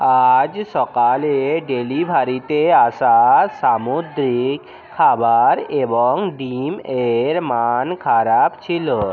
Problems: constant background noise, continuous background conversations